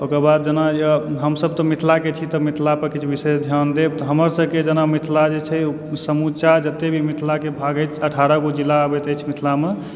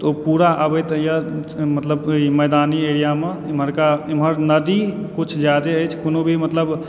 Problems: background sounds at intervals, background conversations at intervals